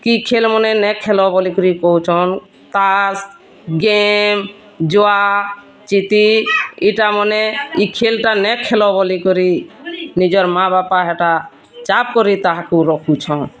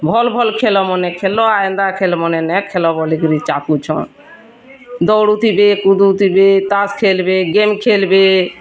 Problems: constant background noise